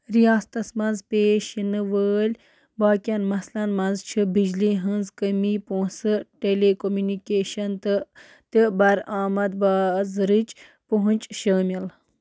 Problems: constant background noise